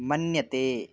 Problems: constant background noise